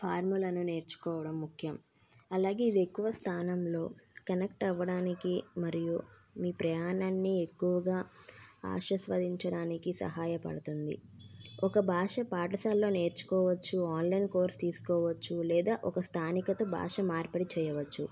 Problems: background sounds at intervals